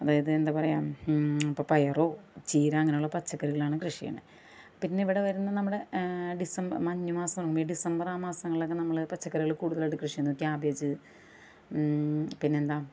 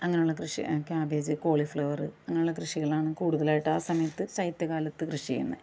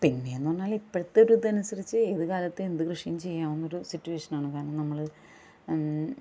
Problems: background sounds at intervals